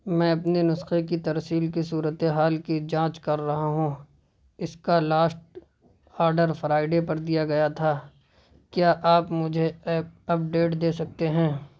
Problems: constant background noise